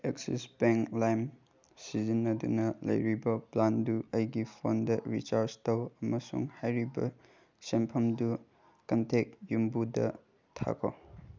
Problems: none marked